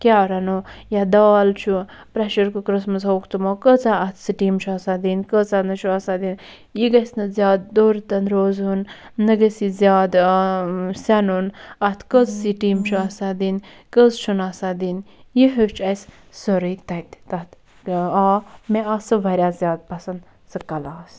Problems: none marked